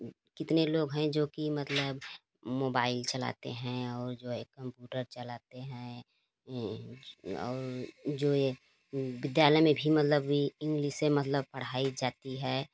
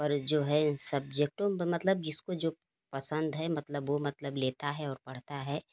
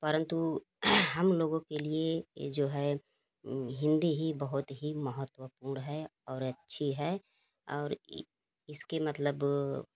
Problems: none marked